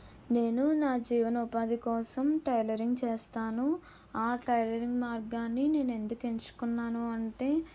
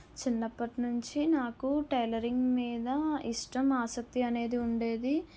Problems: low volume